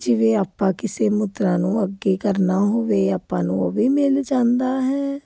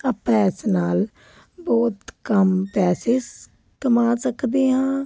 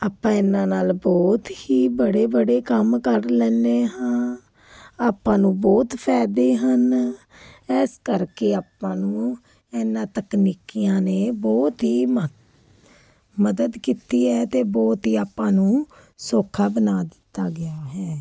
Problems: none marked